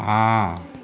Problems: constant background noise